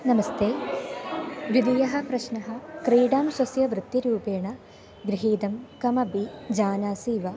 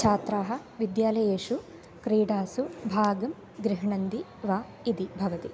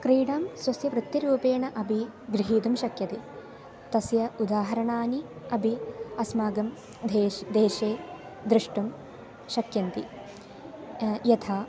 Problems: constant background noise